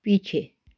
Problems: background sounds at intervals